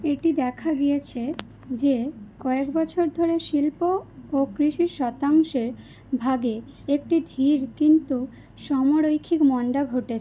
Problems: none marked